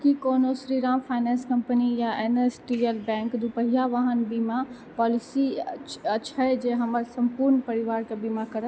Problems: background sounds at intervals